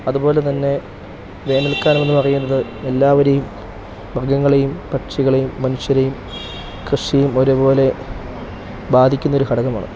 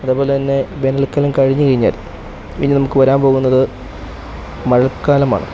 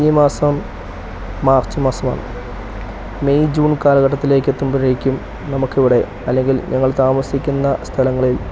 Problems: background sounds at intervals